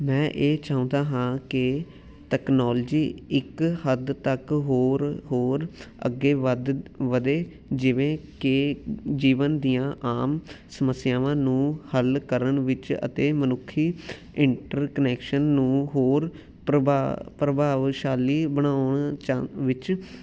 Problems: none marked